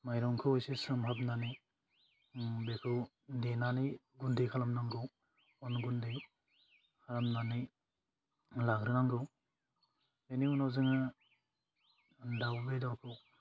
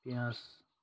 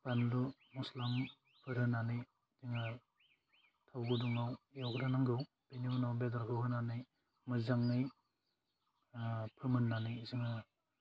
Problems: none marked